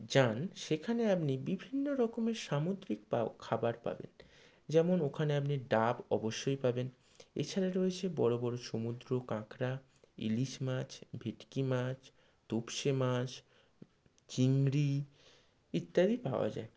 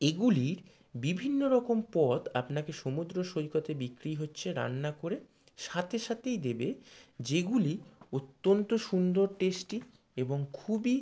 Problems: low volume